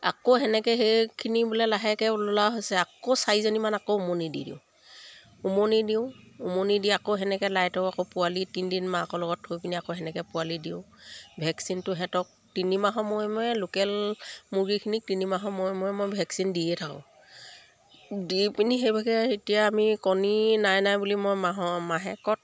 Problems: none marked